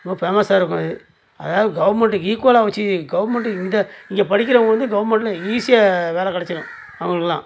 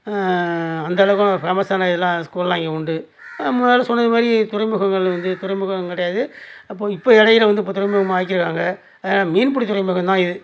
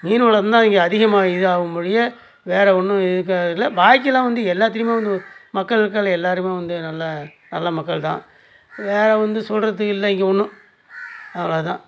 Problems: none marked